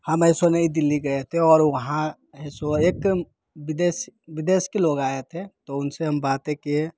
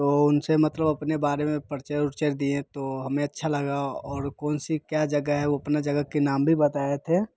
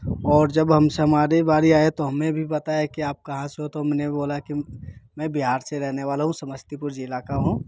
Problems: none marked